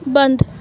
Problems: constant background noise